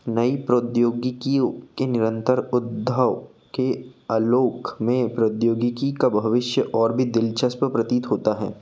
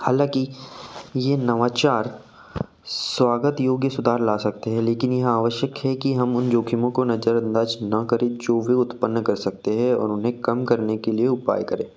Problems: none marked